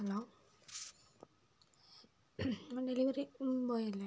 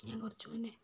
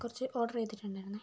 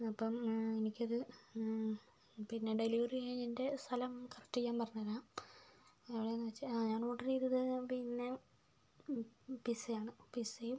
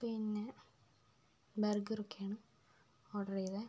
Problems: low volume